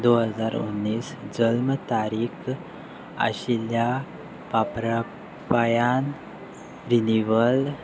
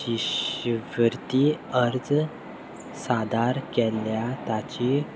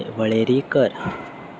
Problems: none marked